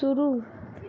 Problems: constant background noise